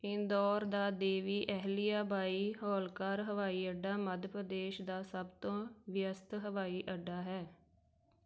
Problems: none marked